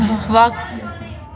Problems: constant background noise, background conversations at intervals